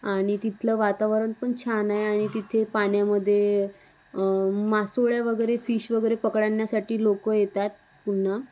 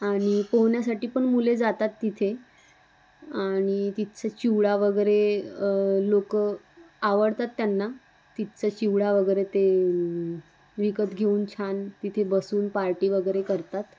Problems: constant background noise